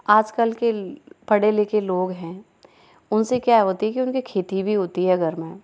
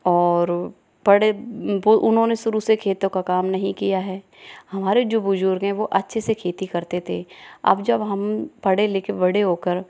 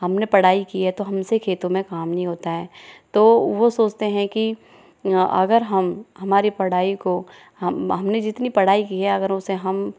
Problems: background conversations at intervals